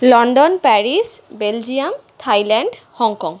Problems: none marked